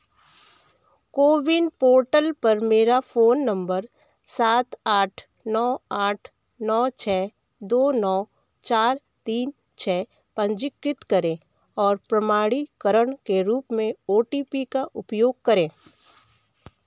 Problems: background sounds at intervals